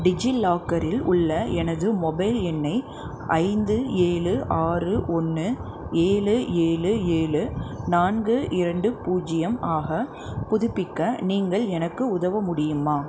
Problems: constant background noise